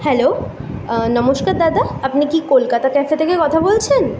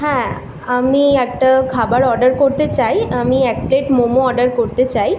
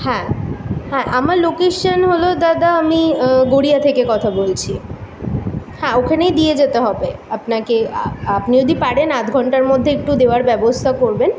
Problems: constant background noise, background conversations at intervals